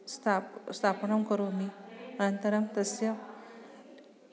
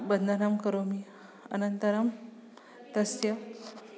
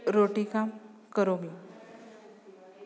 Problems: background sounds at intervals